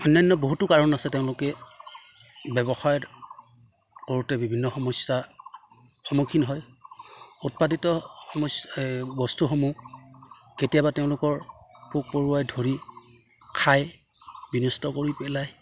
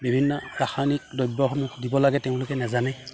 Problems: background sounds at intervals